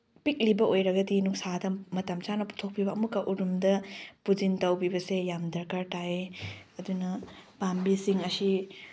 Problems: none marked